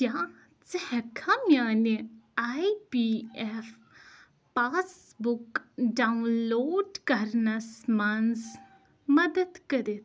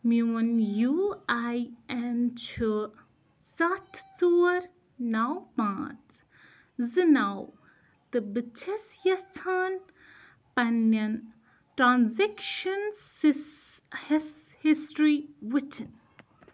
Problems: none marked